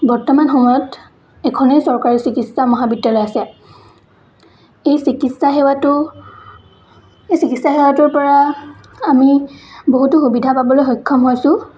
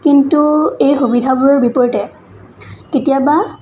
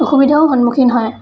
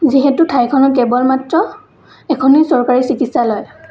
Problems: constant background noise, continuous background conversations